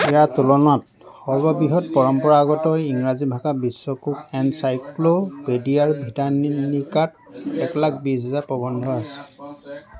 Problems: constant background noise, continuous background conversations